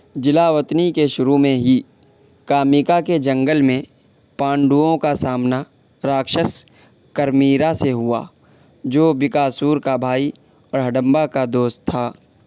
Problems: constant background noise